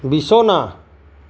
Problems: none marked